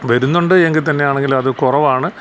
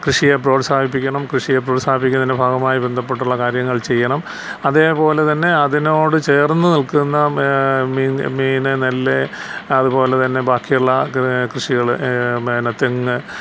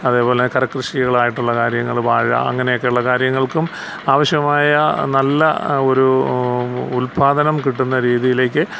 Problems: constant background noise